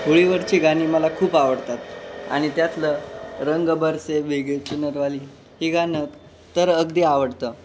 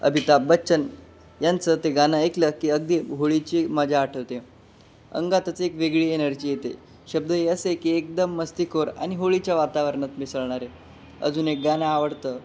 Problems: constant background noise